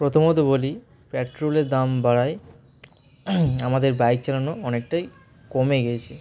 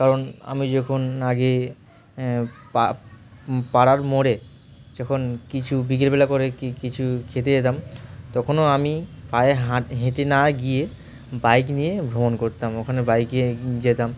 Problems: constant background noise, continuous background conversations